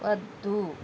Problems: constant background noise